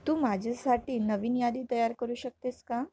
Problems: background sounds at intervals